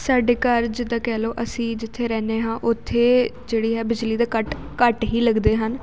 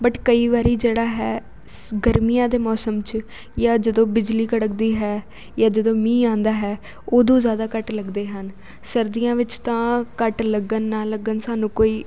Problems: constant background noise